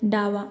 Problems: background sounds at intervals, continuous background conversations